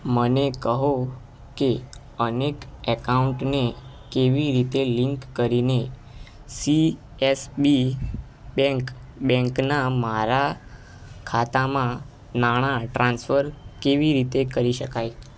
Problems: none marked